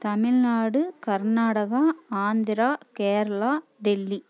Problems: none marked